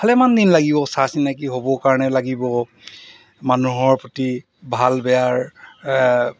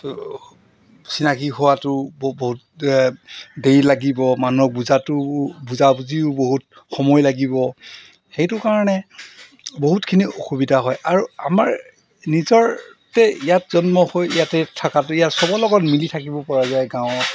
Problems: background sounds at intervals